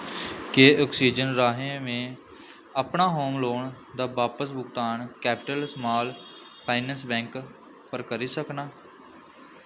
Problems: constant background noise